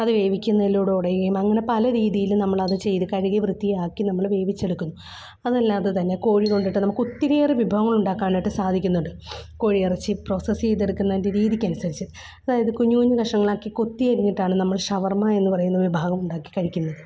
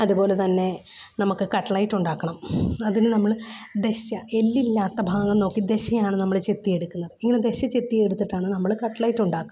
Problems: background sounds at intervals, low volume